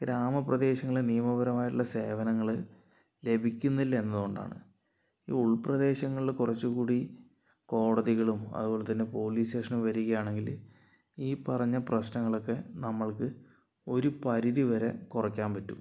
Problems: low volume